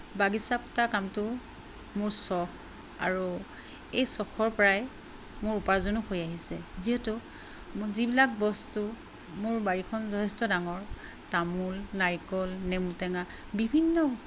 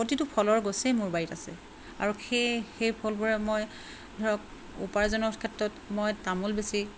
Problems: constant background noise